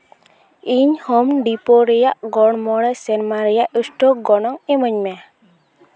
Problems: constant background noise, continuous background conversations